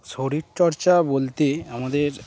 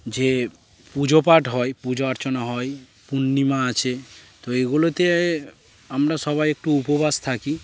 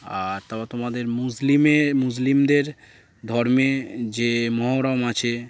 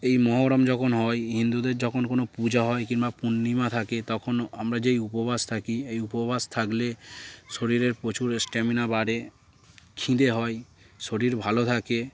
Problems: constant background noise, background conversations at intervals